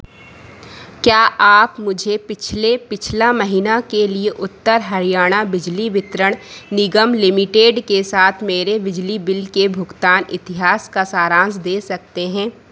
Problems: none marked